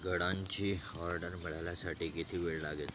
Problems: none marked